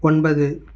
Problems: none marked